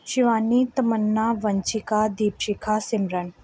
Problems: none marked